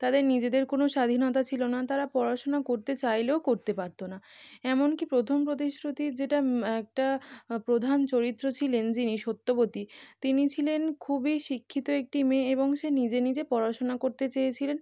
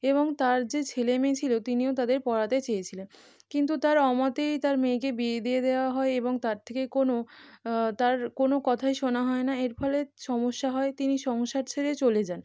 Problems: none marked